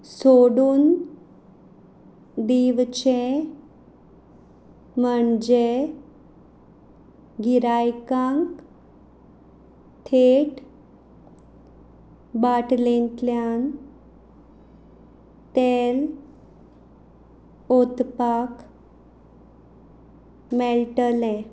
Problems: background sounds at intervals